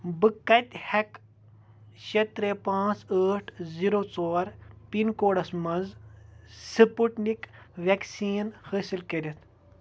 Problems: none marked